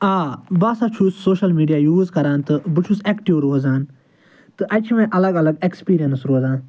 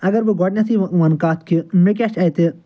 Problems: background sounds at intervals